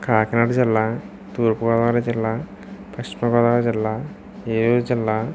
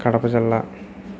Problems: constant background noise